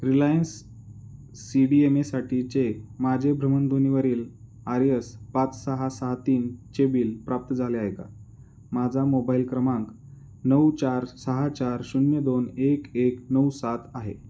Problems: none marked